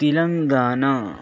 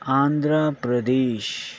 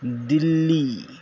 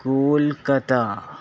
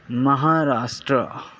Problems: constant background noise